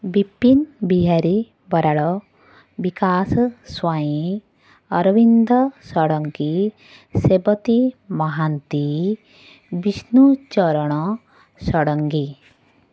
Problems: none marked